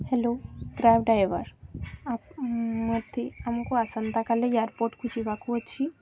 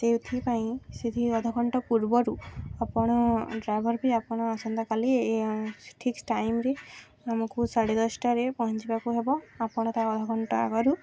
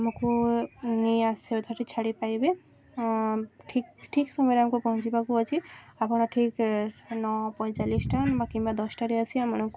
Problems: constant background noise, background conversations at intervals